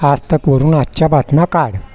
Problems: constant background noise, background conversations at intervals